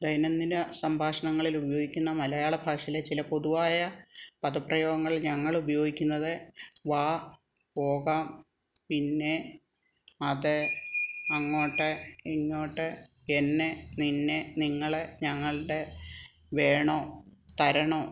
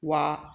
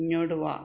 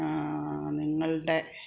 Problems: background conversations at intervals